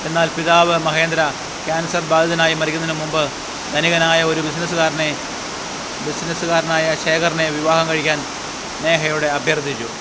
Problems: constant background noise